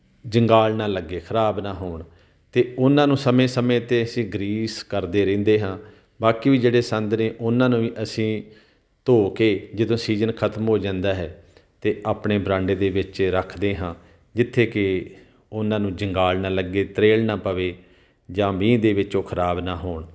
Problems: background sounds at intervals